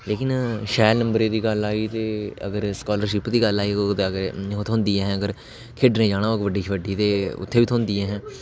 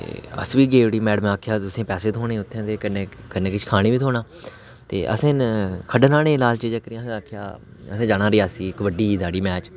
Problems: constant background noise